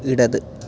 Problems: none marked